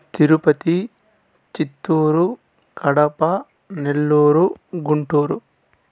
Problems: none marked